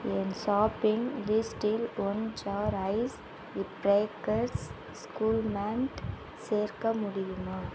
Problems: constant background noise